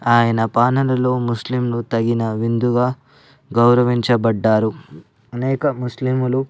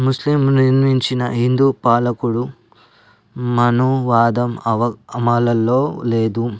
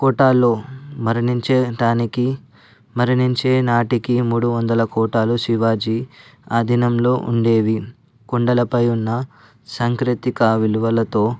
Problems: background sounds at intervals